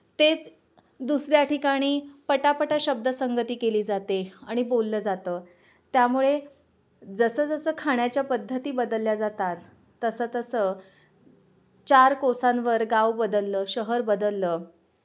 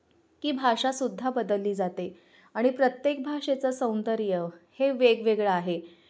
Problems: background sounds at intervals, background conversations at intervals